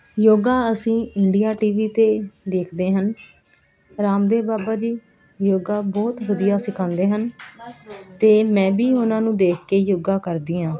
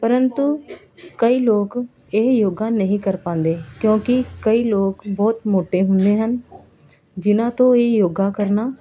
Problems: background sounds at intervals